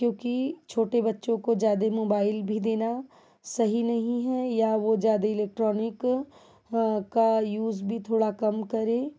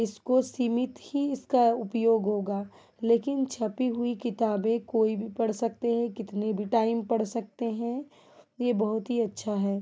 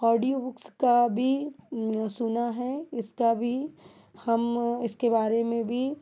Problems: background sounds at intervals